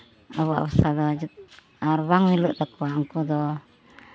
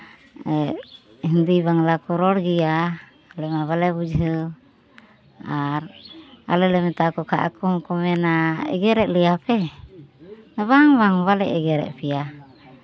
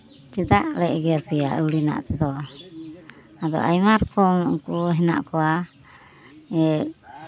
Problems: background sounds at intervals, continuous background conversations